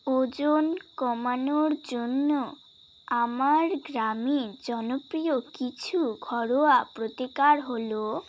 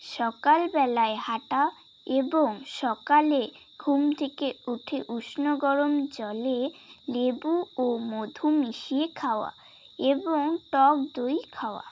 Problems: none marked